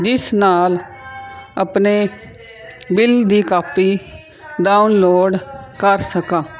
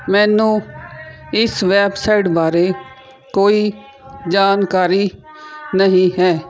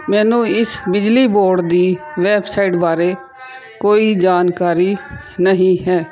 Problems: background sounds at intervals